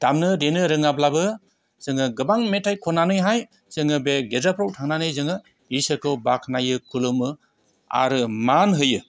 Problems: none marked